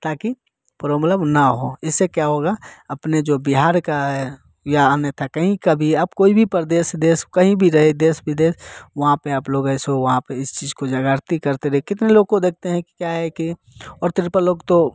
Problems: constant background noise